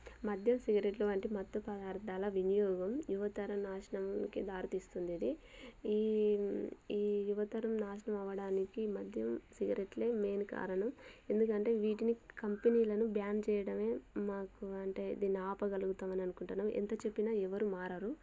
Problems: none marked